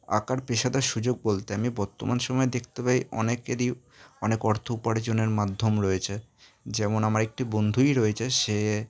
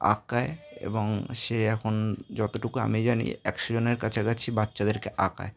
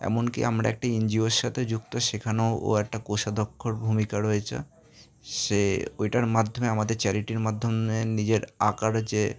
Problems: constant background noise, background conversations at intervals